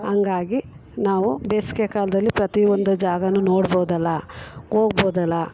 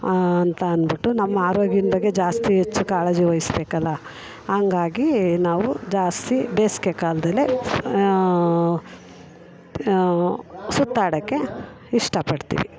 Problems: background conversations at intervals